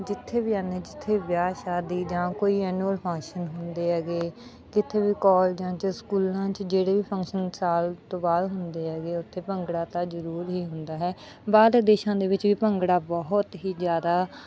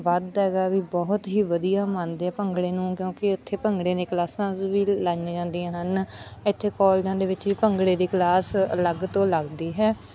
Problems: none marked